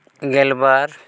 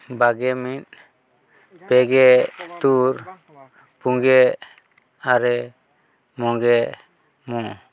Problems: constant background noise